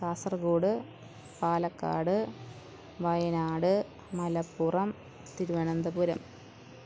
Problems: background sounds at intervals, low volume